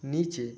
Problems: none marked